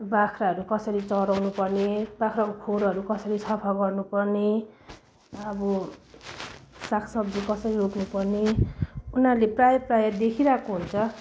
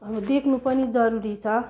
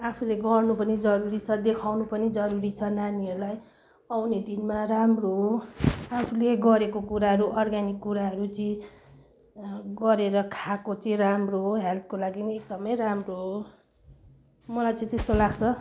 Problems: none marked